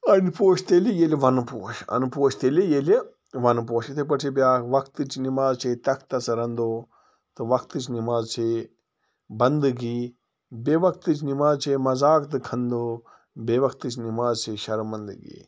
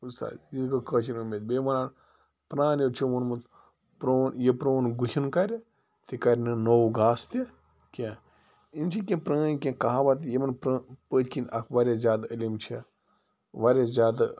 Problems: constant background noise